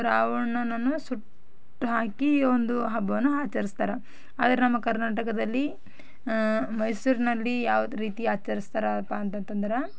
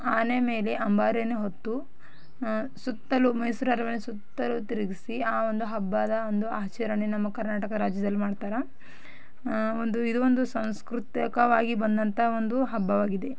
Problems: background sounds at intervals